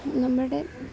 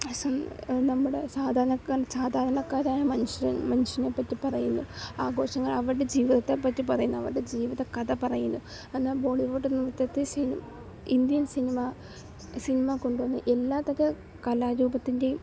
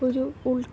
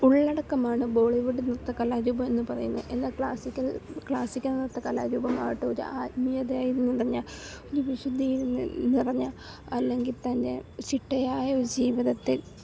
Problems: background sounds at intervals, low volume